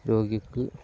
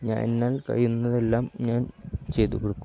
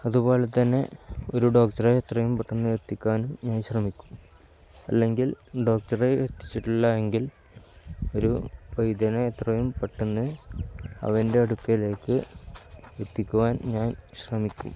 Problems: none marked